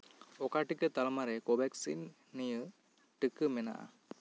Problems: none marked